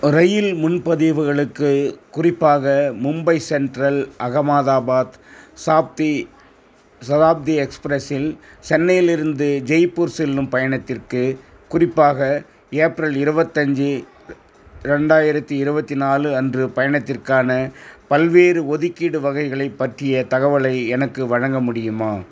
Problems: background sounds at intervals